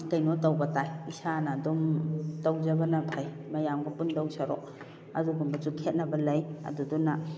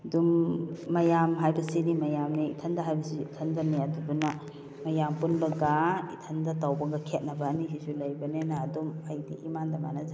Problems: background conversations at intervals